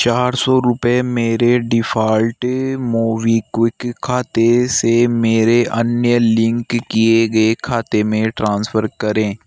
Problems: background sounds at intervals